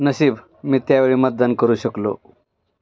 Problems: background sounds at intervals, background conversations at intervals